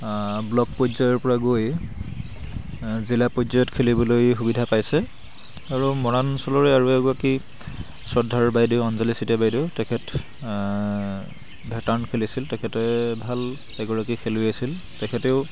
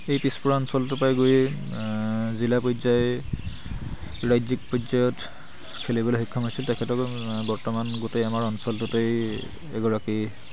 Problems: constant background noise, background conversations at intervals